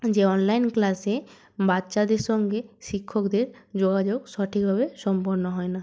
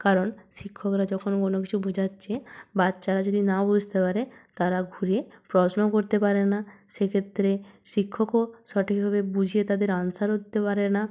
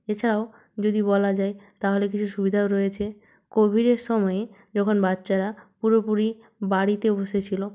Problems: none marked